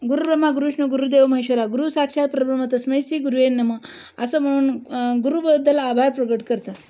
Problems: constant background noise